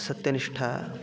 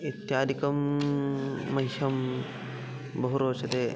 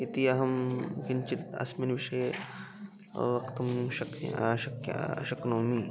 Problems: background conversations at intervals